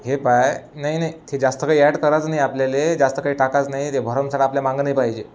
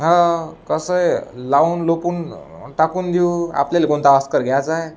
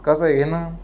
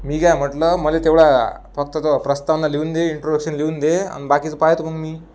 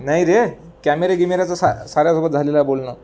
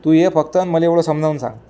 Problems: none marked